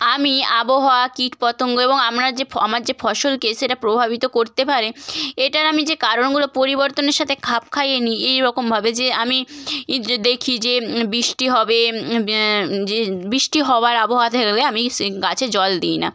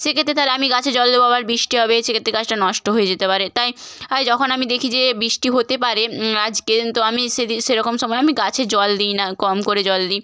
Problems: none marked